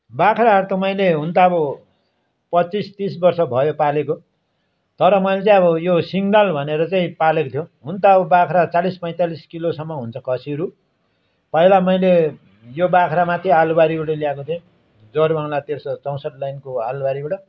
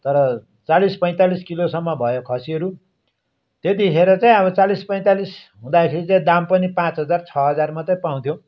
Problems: none marked